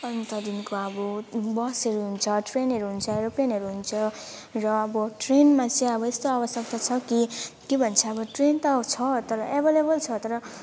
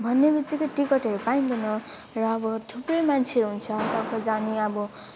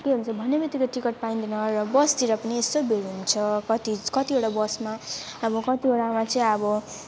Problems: none marked